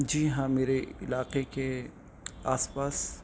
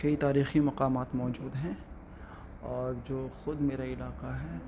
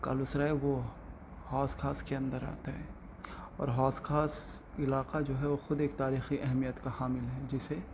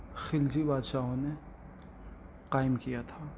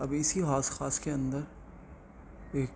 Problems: constant background noise